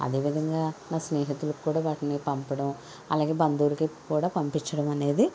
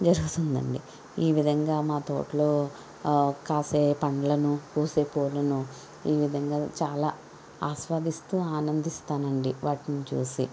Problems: constant background noise